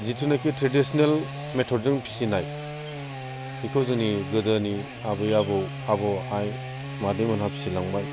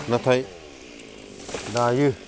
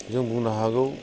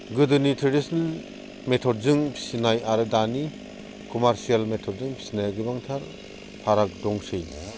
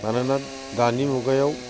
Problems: constant background noise